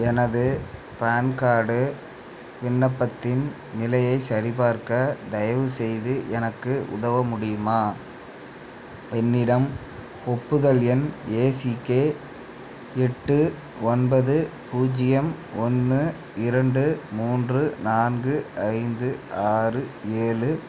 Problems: background conversations at intervals